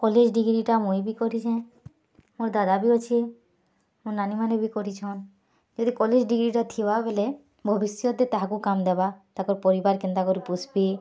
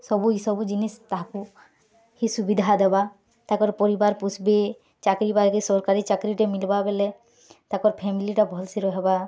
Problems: none marked